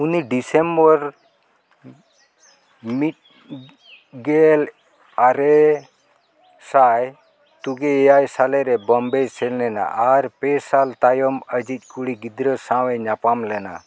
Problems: none marked